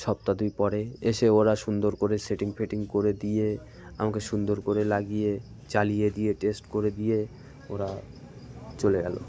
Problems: constant background noise, continuous background conversations